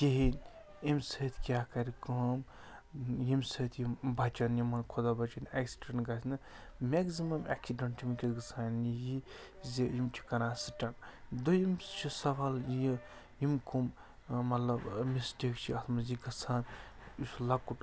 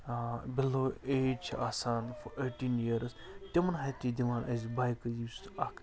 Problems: constant background noise